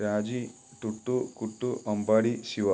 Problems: none marked